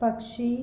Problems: none marked